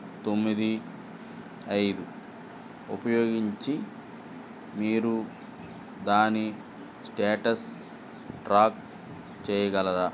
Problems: constant background noise